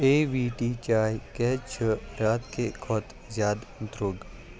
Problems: constant background noise